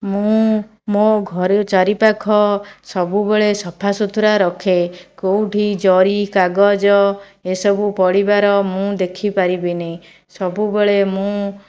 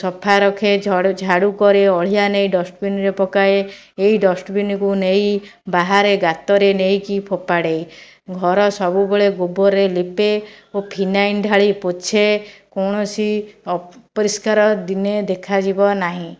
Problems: none marked